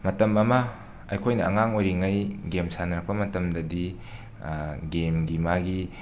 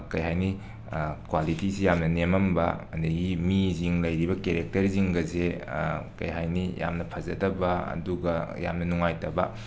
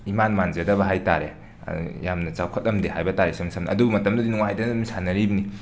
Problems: none marked